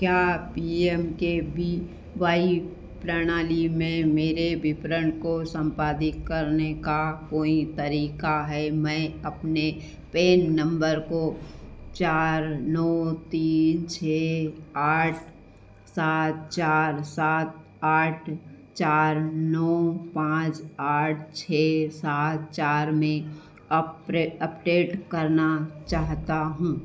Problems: constant background noise, echo